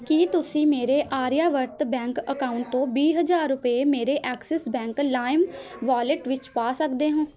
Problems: continuous background conversations